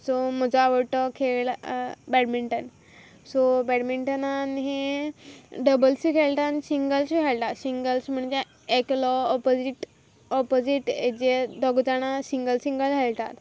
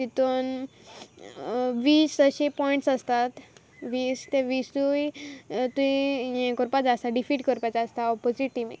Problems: background sounds at intervals